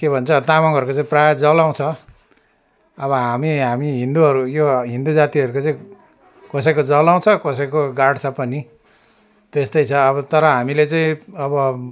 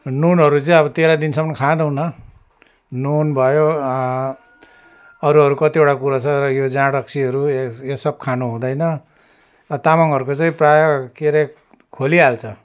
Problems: constant background noise, continuous background conversations